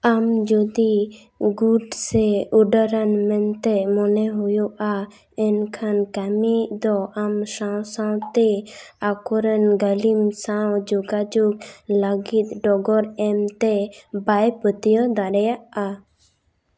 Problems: none marked